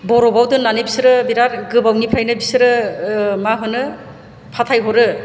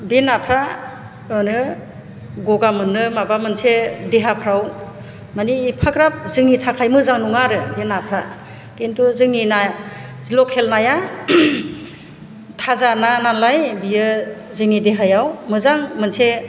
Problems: none marked